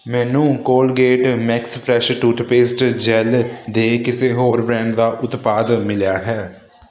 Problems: constant background noise